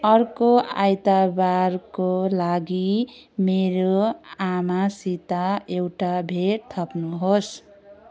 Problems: continuous background conversations